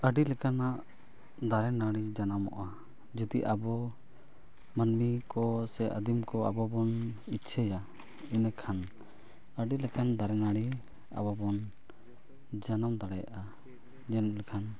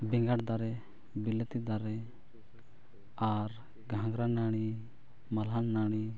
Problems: low volume